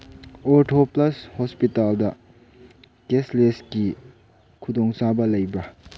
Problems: none marked